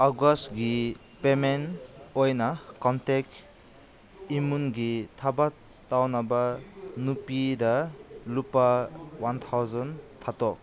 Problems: constant background noise, background conversations at intervals